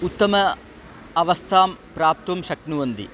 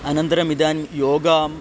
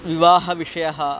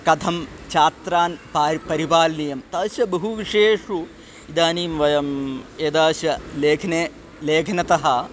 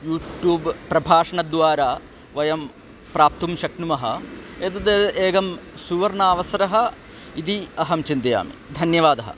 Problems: constant background noise